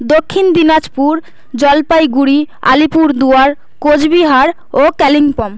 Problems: none marked